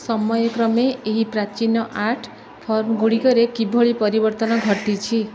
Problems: background conversations at intervals